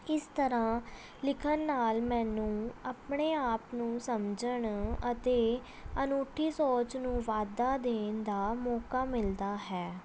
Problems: background sounds at intervals, background conversations at intervals